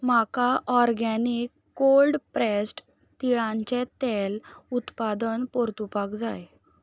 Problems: background sounds at intervals